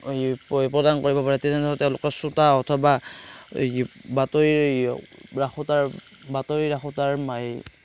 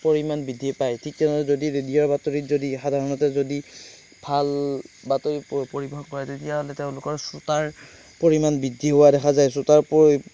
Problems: none marked